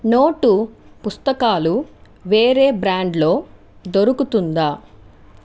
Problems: none marked